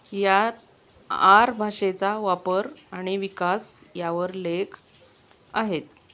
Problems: constant background noise